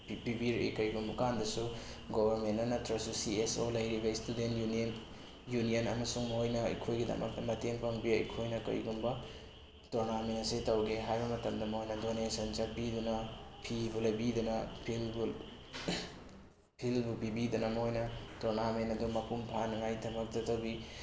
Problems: background sounds at intervals, low volume